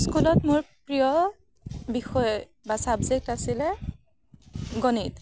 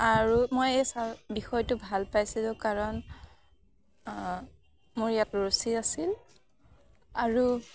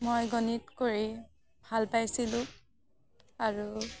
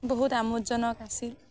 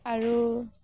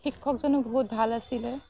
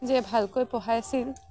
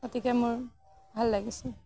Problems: none marked